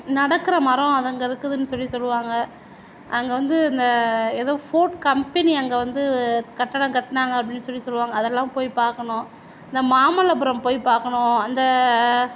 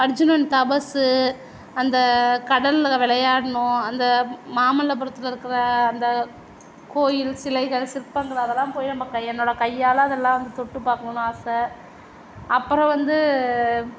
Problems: none marked